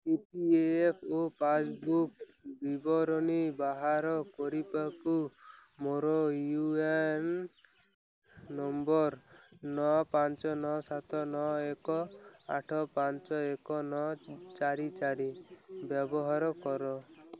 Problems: constant background noise, continuous background conversations